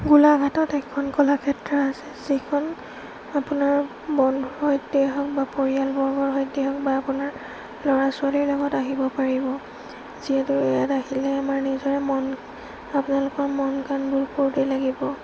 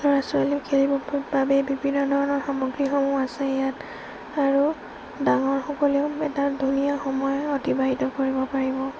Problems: constant background noise, low volume